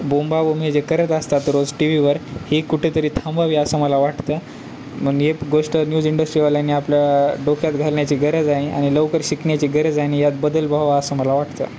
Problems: constant background noise